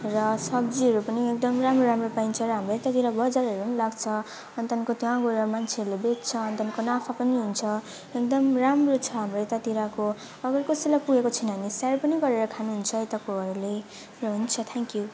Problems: constant background noise